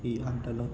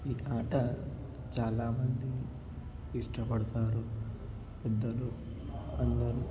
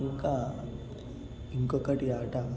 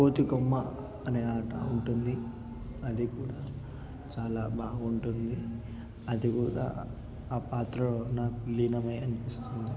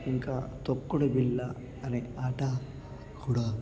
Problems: background sounds at intervals, background conversations at intervals, low volume